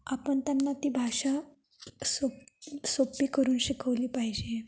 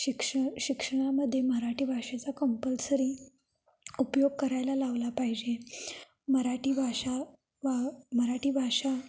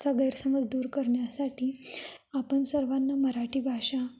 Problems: background sounds at intervals, echo